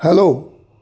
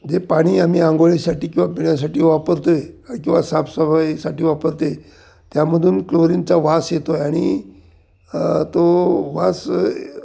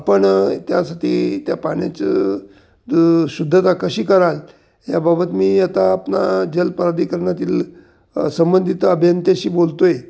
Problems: none marked